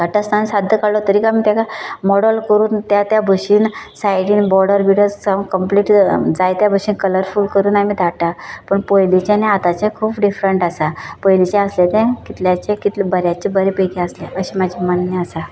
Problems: background sounds at intervals